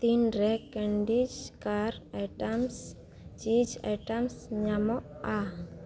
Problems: none marked